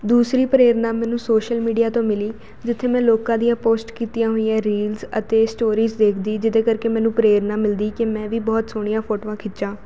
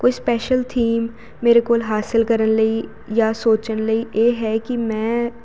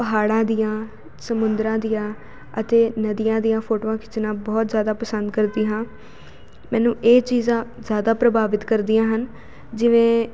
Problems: constant background noise